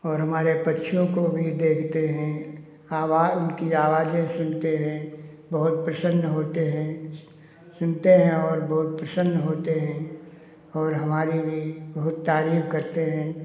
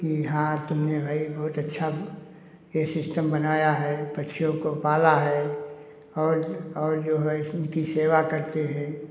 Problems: none marked